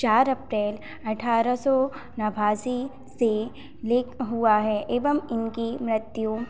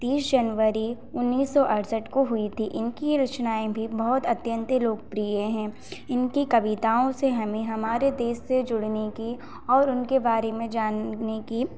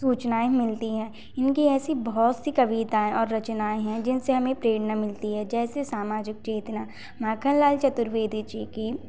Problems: constant background noise, echo